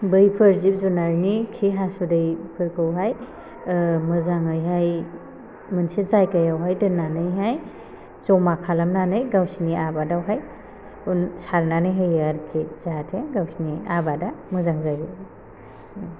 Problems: constant background noise